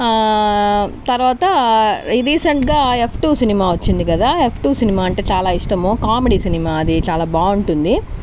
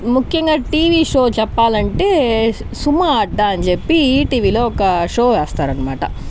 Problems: constant background noise